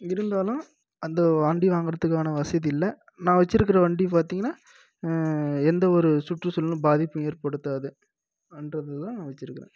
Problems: low volume